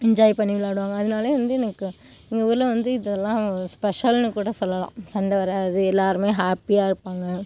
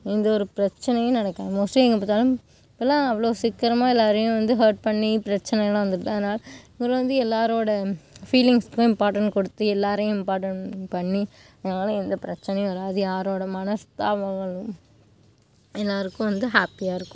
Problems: background sounds at intervals